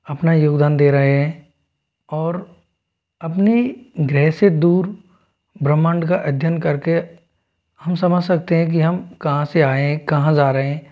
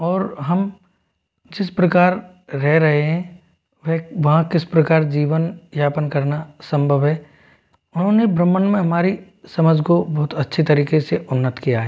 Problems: background sounds at intervals